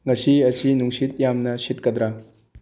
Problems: low volume